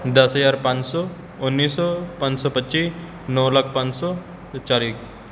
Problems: constant background noise